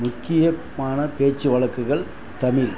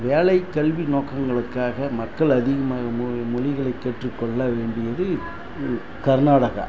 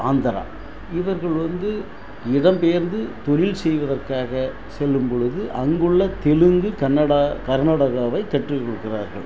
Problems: constant background noise